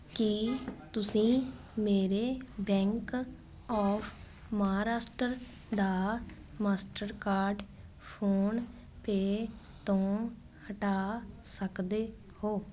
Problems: none marked